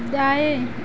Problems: constant background noise